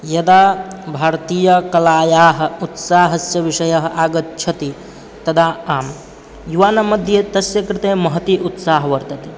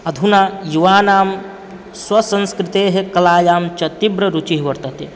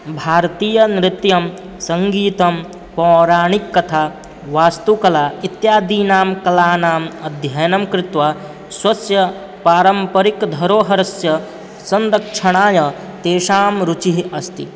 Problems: none marked